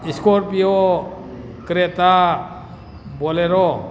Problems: background sounds at intervals